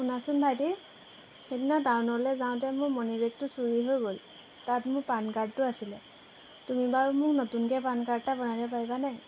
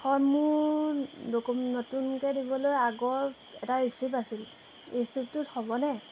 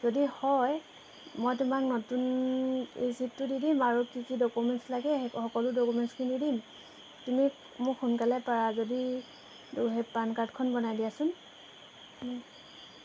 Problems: constant background noise